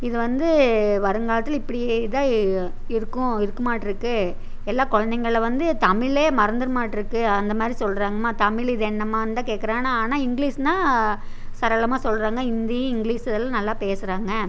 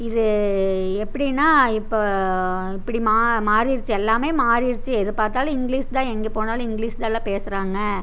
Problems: none marked